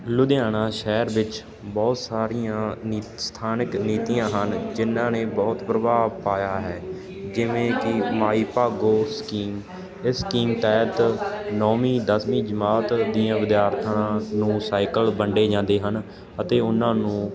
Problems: constant background noise